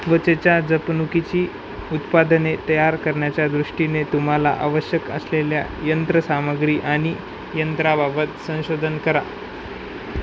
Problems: constant background noise